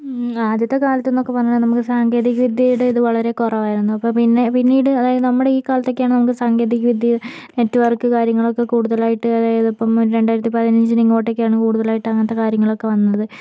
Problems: background sounds at intervals